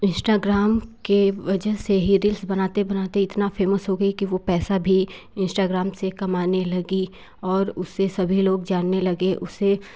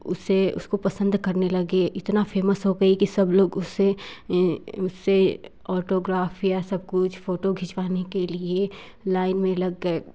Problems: none marked